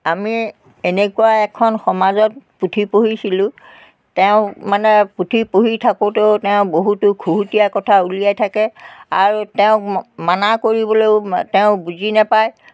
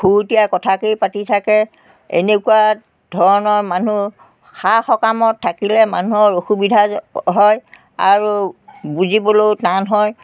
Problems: constant background noise